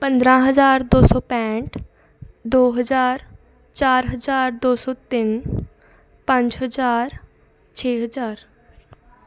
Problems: continuous background conversations